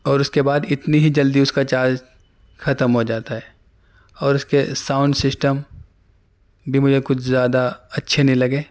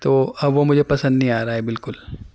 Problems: none marked